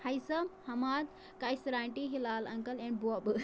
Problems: constant background noise